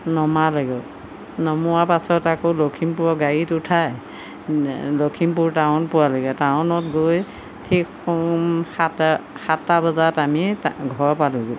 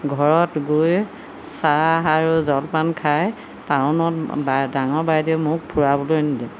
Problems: constant background noise